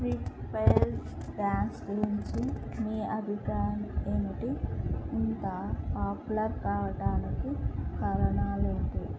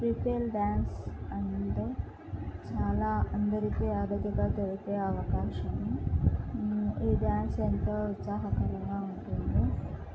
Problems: constant background noise, low volume